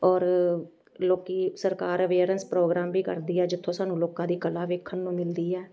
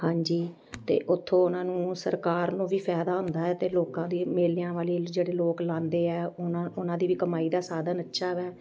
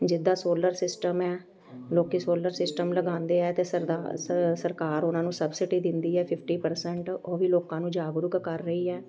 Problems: background sounds at intervals, continuous background conversations